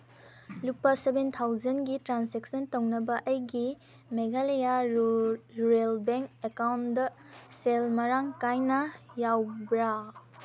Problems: background sounds at intervals